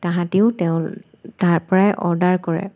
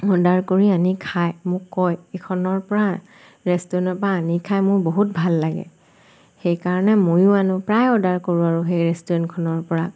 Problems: constant background noise